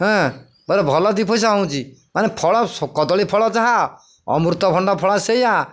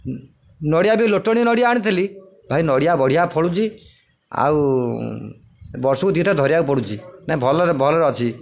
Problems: none marked